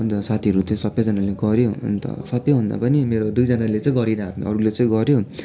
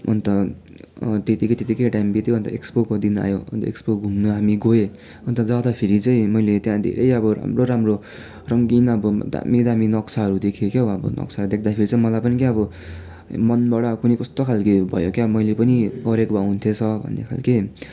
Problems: continuous background conversations